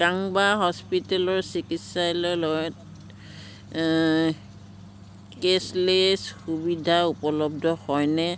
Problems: constant background noise